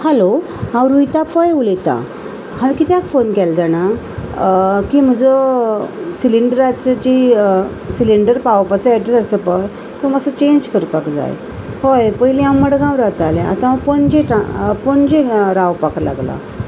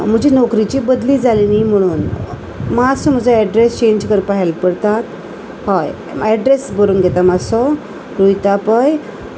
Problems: constant background noise